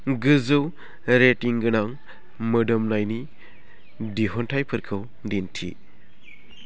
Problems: none marked